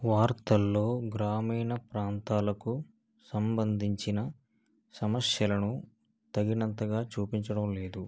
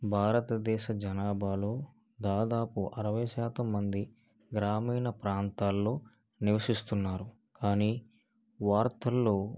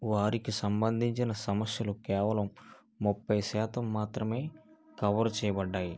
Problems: none marked